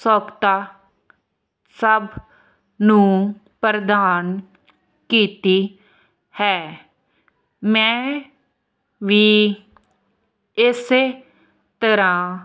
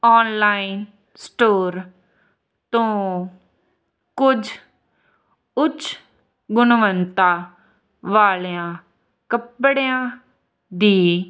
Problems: none marked